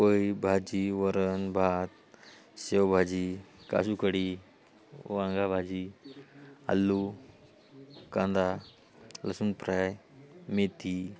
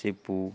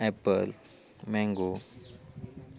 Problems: constant background noise